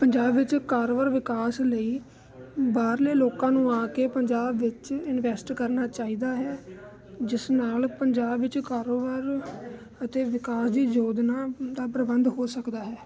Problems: constant background noise